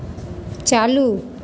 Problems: constant background noise